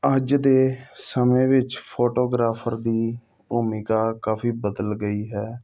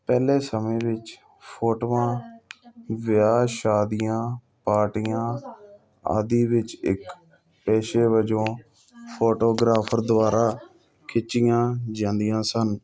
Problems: none marked